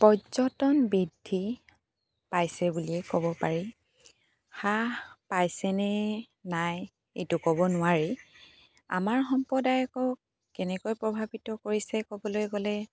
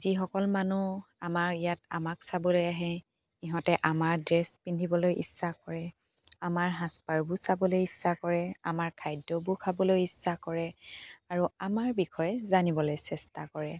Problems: none marked